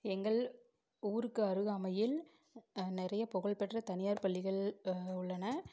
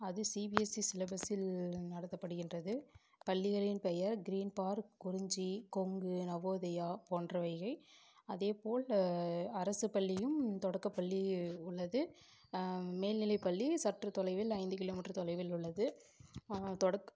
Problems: background sounds at intervals